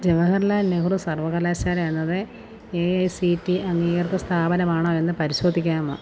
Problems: constant background noise